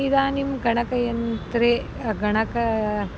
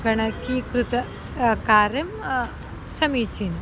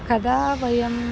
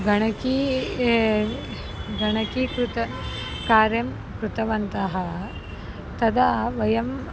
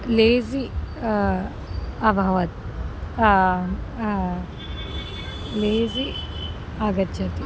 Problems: background sounds at intervals